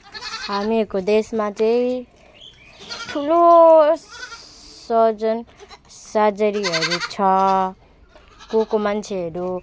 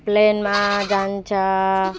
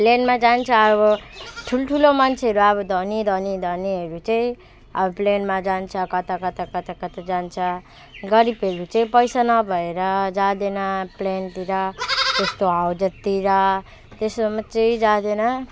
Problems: constant background noise